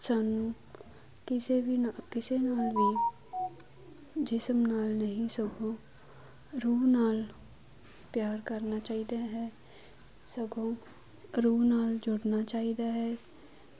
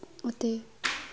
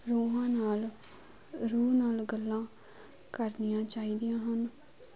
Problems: constant background noise